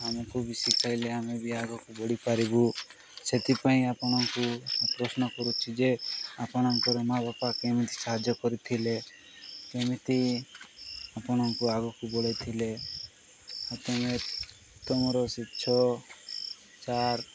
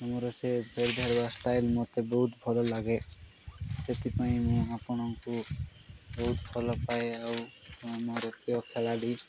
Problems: background sounds at intervals